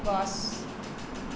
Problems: constant background noise